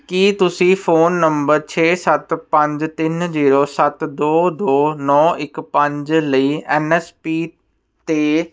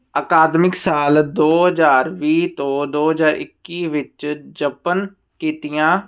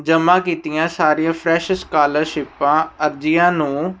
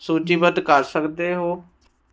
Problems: background sounds at intervals